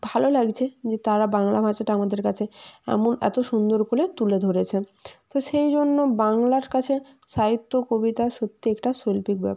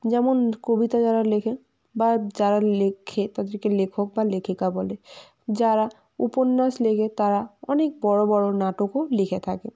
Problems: none marked